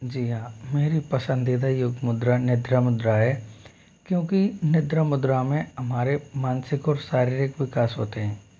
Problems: constant background noise